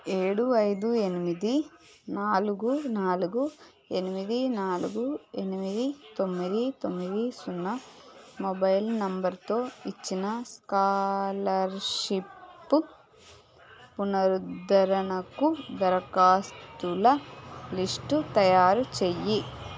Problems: background sounds at intervals